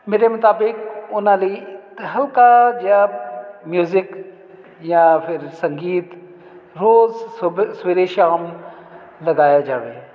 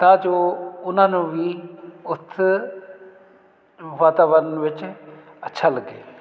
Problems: none marked